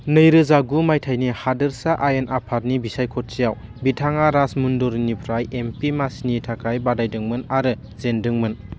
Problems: constant background noise